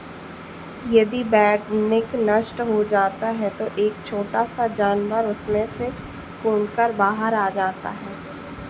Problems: constant background noise